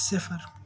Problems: continuous background conversations